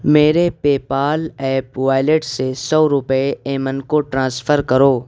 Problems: constant background noise